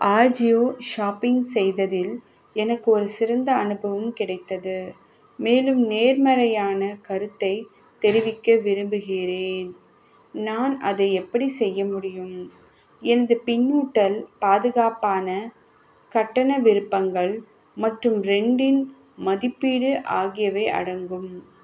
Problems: none marked